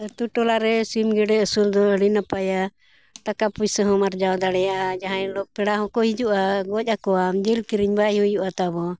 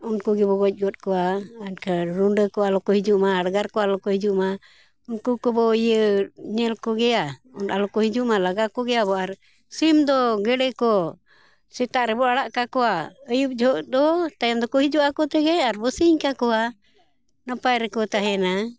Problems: none marked